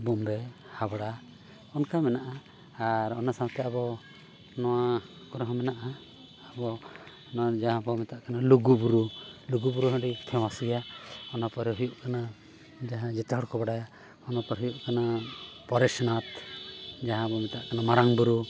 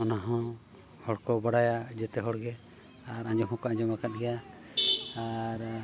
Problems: background sounds at intervals